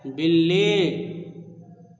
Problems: background sounds at intervals